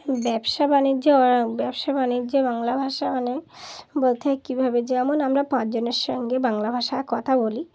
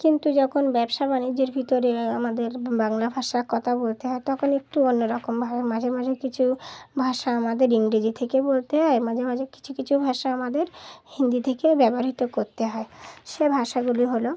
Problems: constant background noise